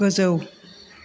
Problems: constant background noise